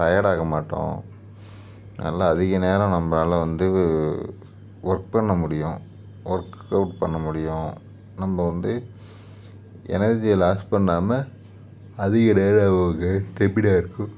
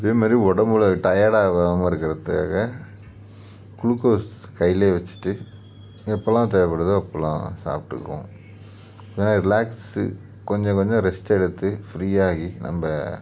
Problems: none marked